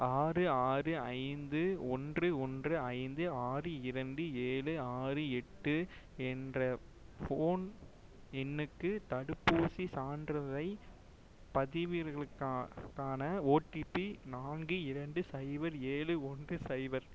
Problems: none marked